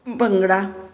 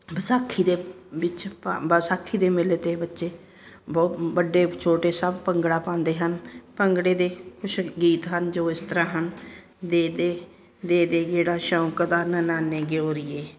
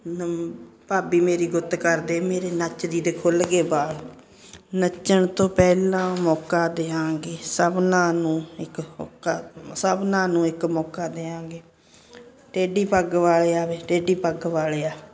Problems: constant background noise